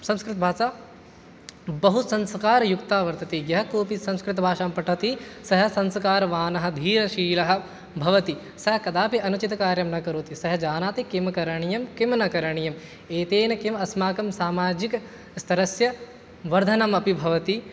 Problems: background conversations at intervals